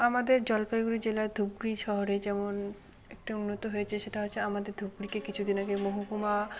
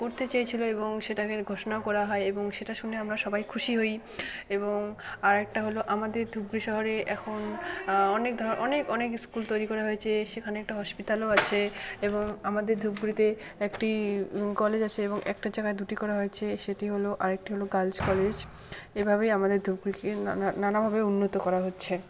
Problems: none marked